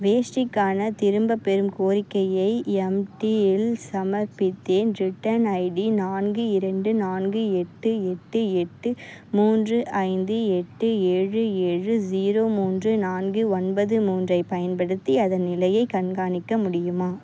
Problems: none marked